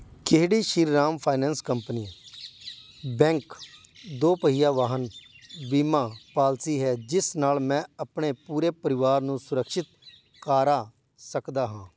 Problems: none marked